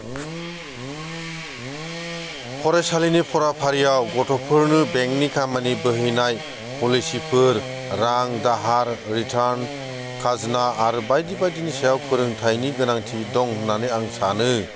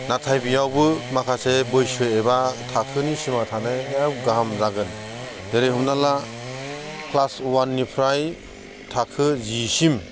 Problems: constant background noise